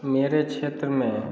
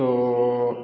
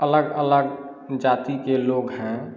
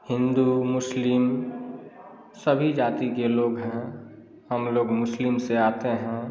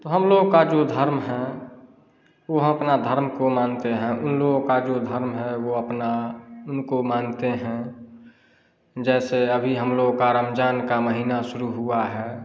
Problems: none marked